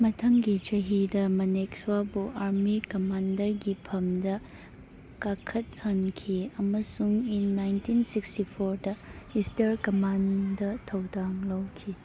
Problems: background sounds at intervals